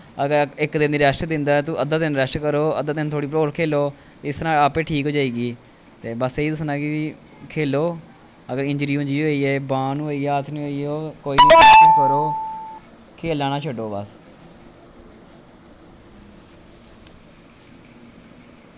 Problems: constant background noise